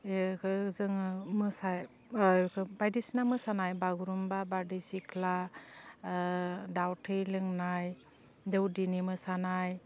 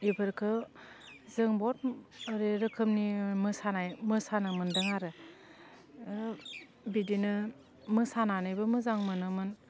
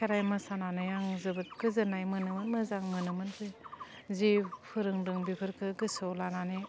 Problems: constant background noise